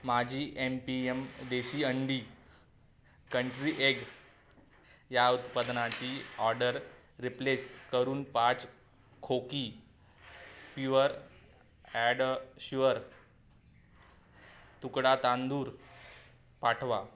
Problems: constant background noise